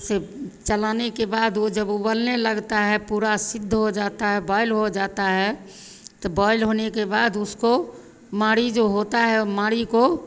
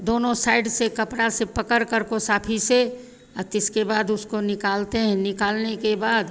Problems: constant background noise, continuous background conversations